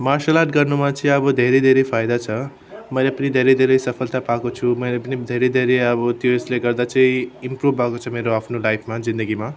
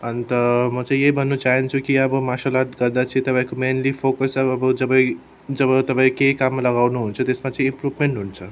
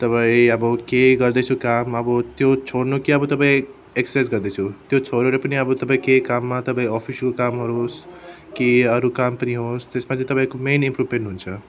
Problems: background sounds at intervals